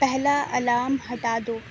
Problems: low volume